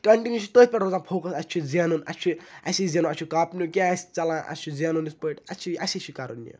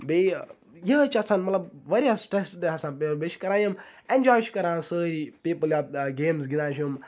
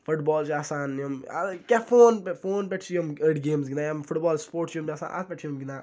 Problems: none marked